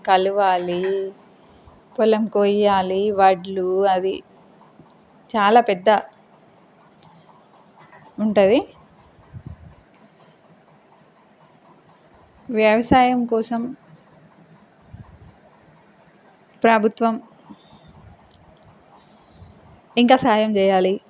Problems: constant background noise